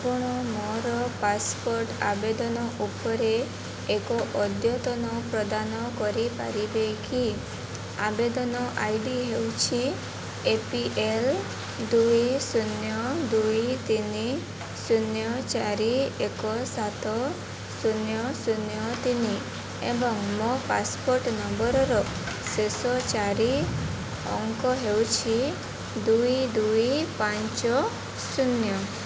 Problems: constant background noise